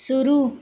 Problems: background sounds at intervals